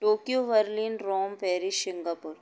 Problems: none marked